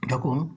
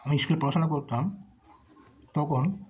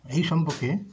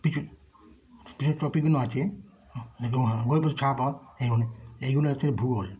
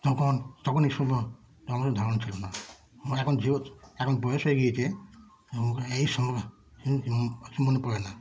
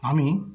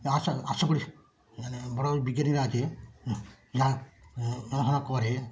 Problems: constant background noise